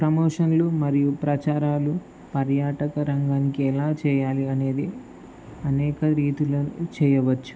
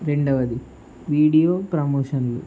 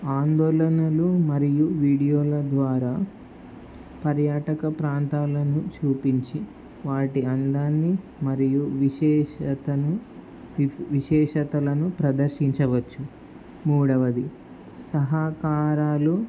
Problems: constant background noise